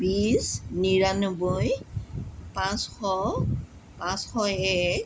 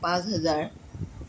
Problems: none marked